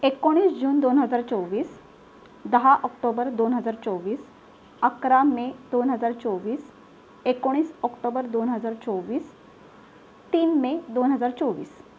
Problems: none marked